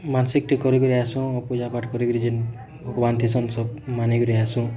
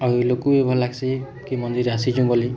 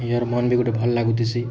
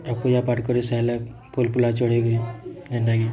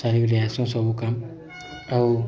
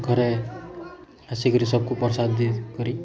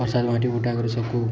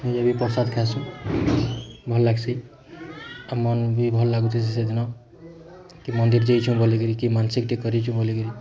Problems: constant background noise